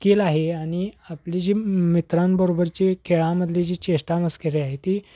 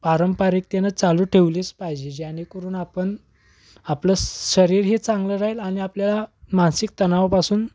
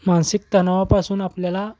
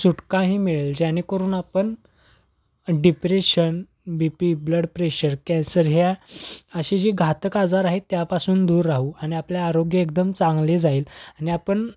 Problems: background sounds at intervals